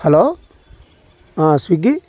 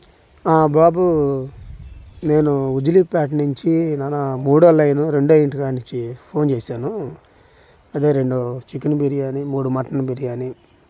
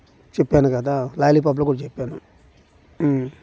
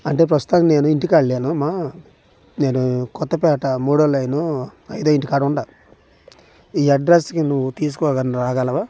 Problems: background sounds at intervals